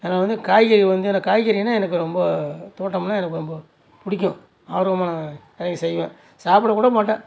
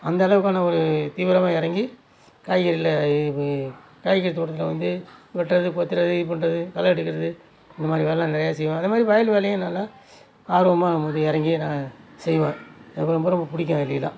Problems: none marked